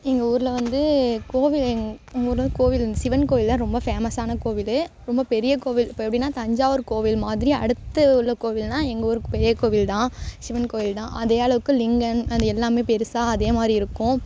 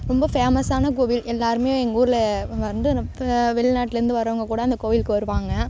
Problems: constant background noise